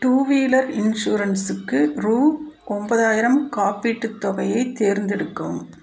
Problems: none marked